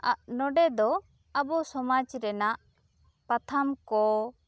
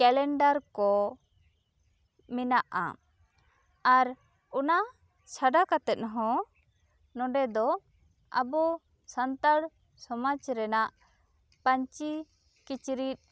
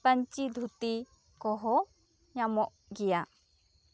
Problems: none marked